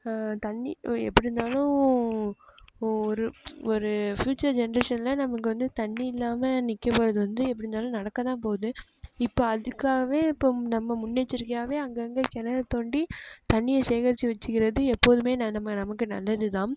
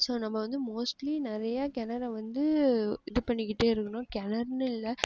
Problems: background sounds at intervals, low volume